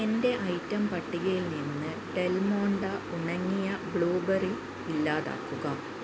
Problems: constant background noise